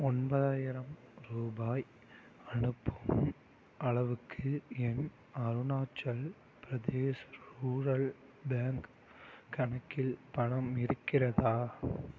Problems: none marked